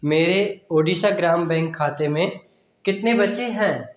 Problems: constant background noise, echo